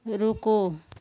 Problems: none marked